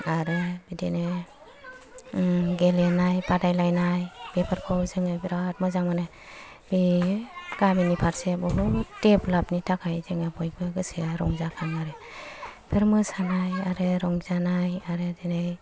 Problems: low volume